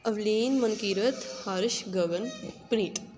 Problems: constant background noise